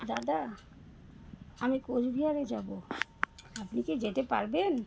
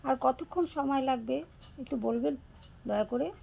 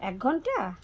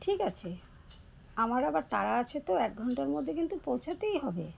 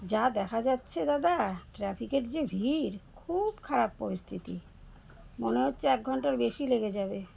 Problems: constant background noise